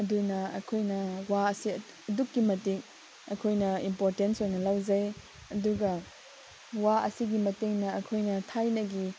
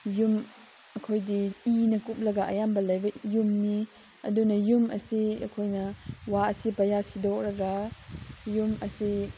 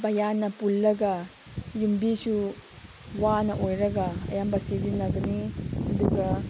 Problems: background sounds at intervals, background conversations at intervals